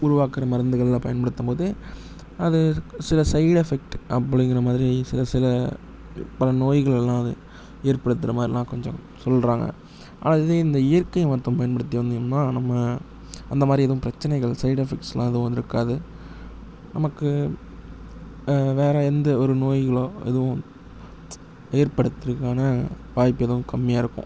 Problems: low volume